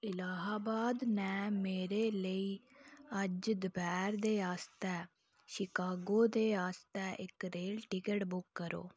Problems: low volume